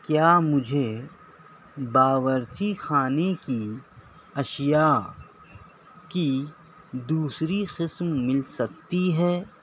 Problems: none marked